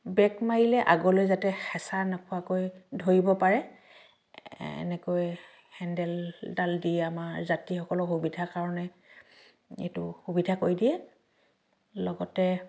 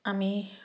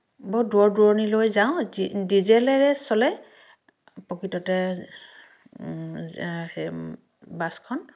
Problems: none marked